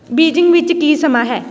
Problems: constant background noise